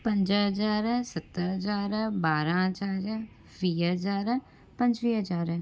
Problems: constant background noise